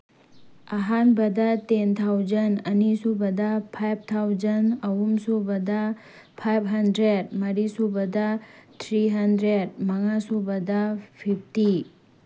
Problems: background sounds at intervals